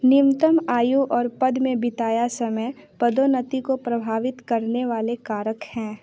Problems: background sounds at intervals, background conversations at intervals